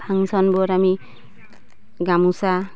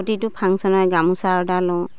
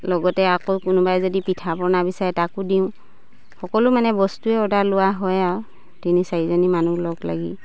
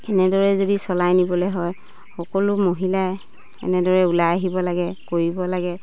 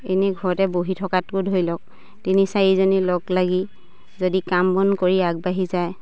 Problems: none marked